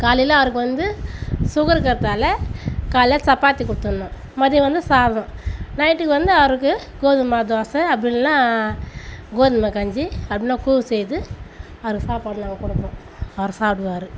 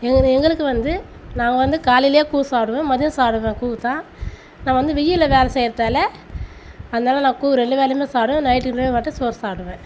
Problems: none marked